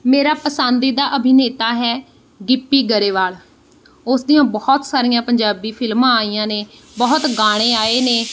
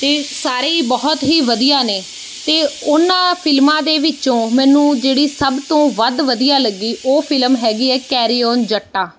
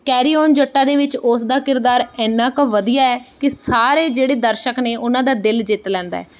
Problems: none marked